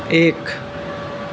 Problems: constant background noise